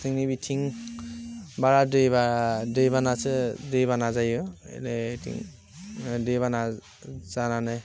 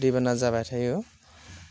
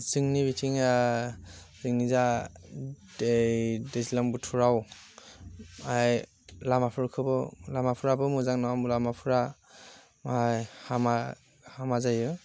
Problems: constant background noise